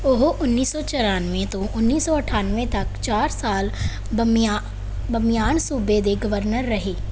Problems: background sounds at intervals